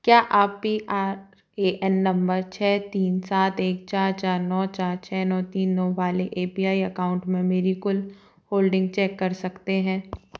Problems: background sounds at intervals